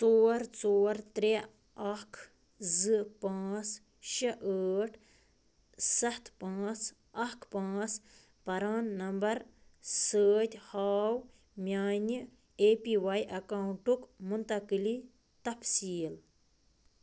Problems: none marked